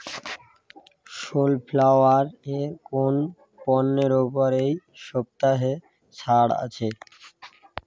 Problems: background sounds at intervals